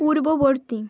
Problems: continuous background conversations